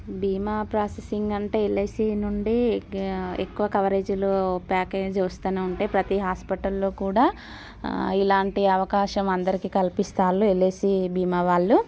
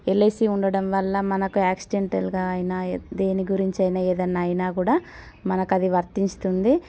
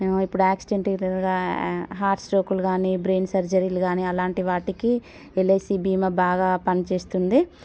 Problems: none marked